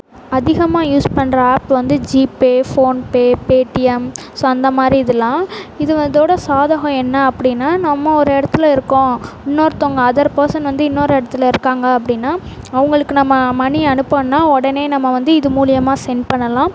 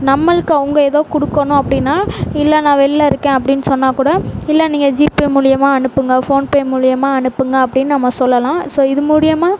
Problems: constant background noise